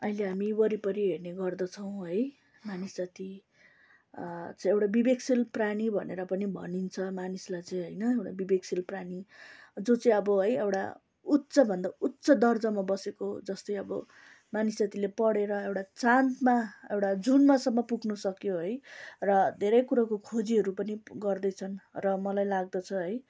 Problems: constant background noise